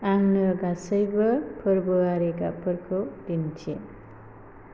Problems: constant background noise